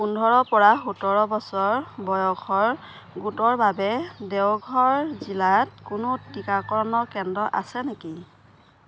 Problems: background sounds at intervals